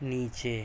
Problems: constant background noise